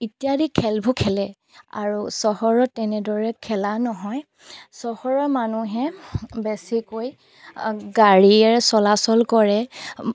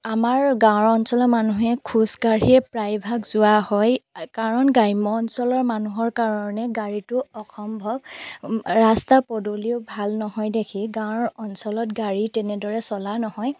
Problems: background sounds at intervals